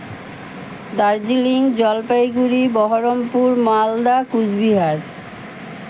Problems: constant background noise